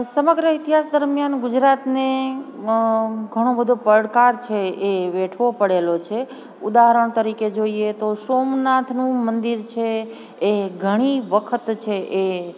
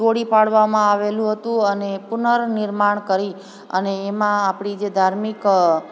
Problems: constant background noise